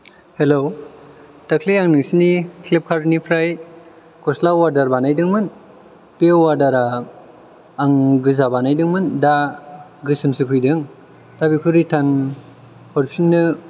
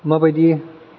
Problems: low volume